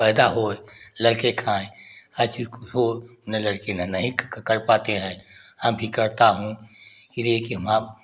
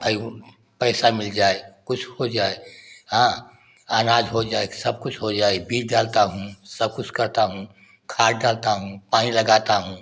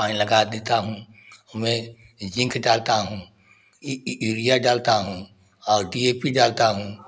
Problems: none marked